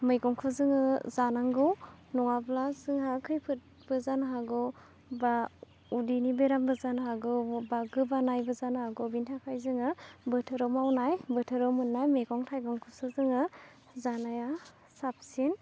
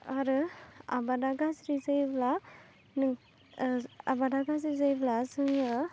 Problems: none marked